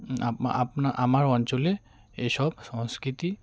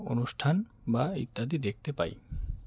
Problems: none marked